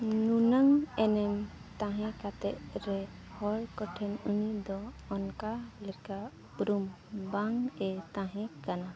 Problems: constant background noise, background conversations at intervals